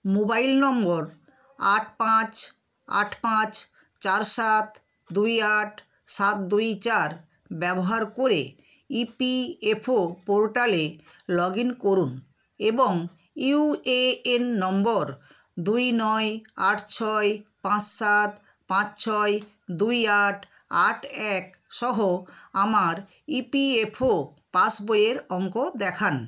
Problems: constant background noise